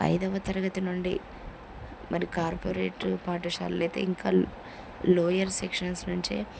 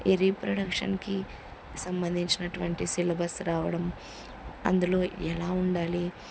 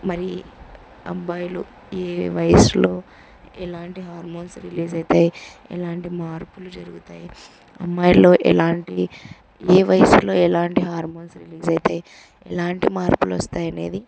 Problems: constant background noise